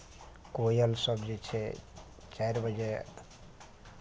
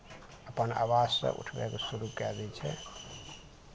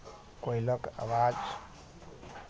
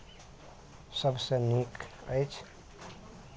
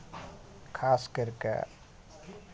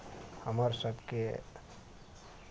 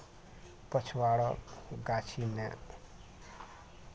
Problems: none marked